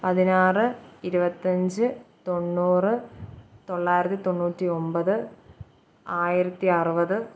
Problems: background sounds at intervals